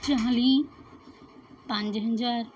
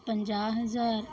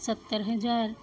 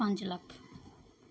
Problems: none marked